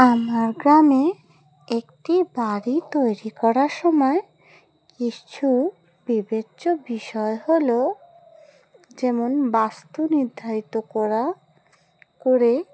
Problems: background sounds at intervals